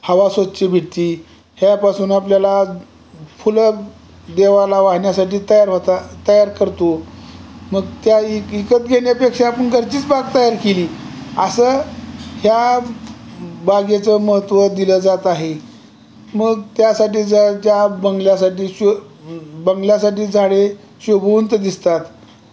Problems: none marked